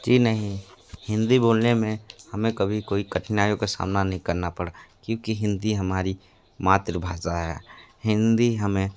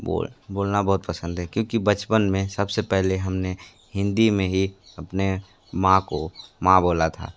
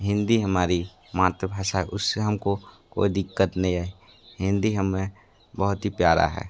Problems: constant background noise